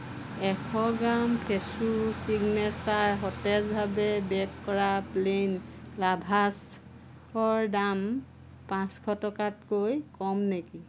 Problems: constant background noise